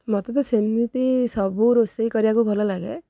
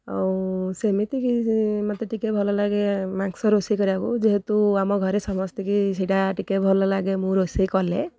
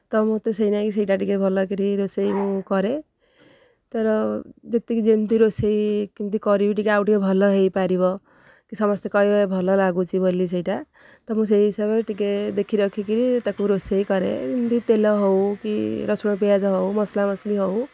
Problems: none marked